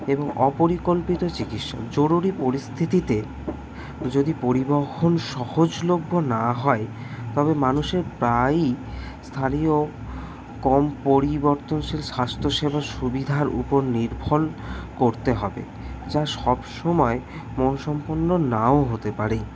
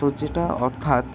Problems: none marked